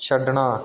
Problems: none marked